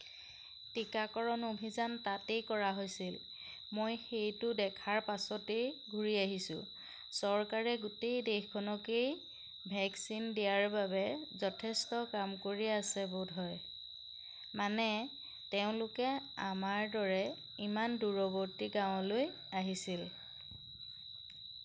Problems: constant background noise